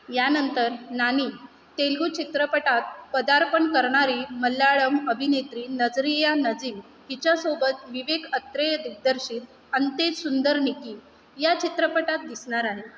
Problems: none marked